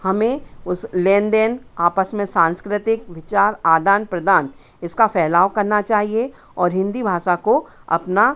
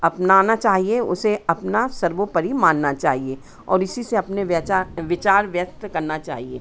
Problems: constant background noise, background conversations at intervals